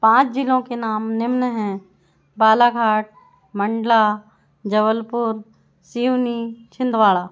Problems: none marked